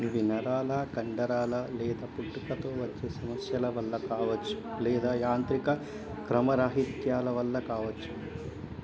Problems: continuous background conversations, low volume